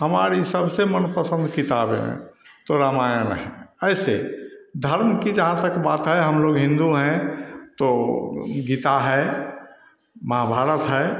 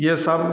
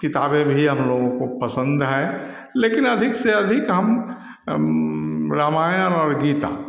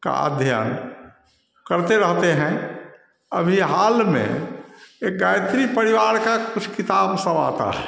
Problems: none marked